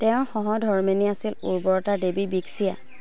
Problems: none marked